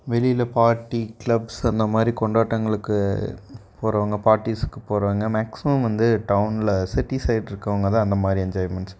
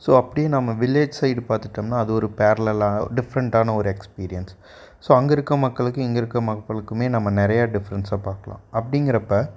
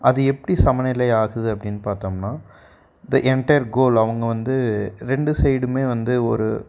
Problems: background sounds at intervals